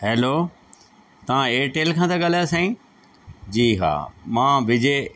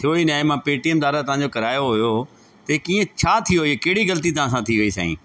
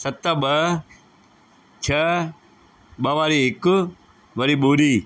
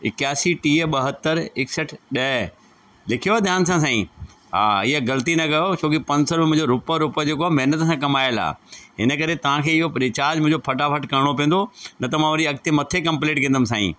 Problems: constant background noise